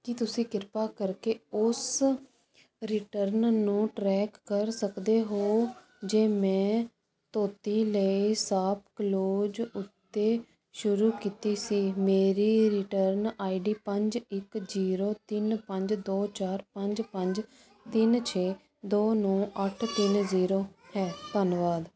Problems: constant background noise